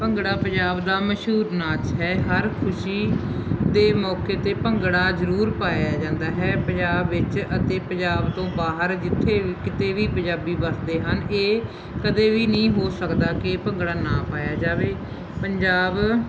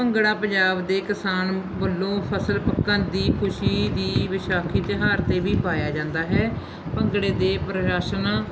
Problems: constant background noise